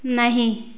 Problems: constant background noise